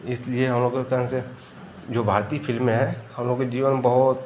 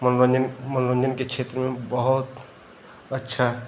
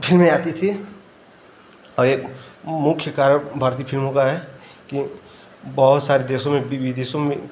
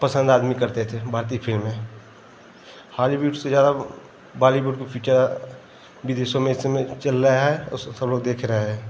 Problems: constant background noise